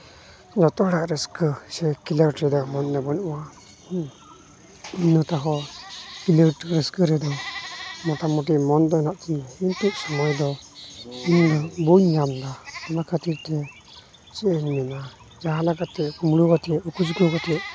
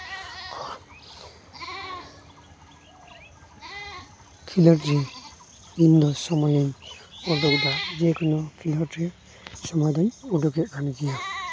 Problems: none marked